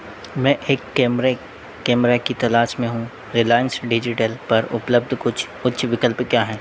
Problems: none marked